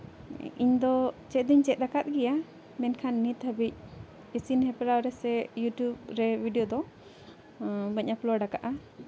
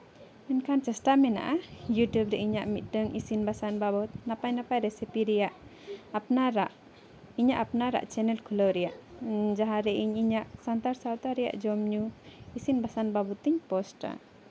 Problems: constant background noise, background conversations at intervals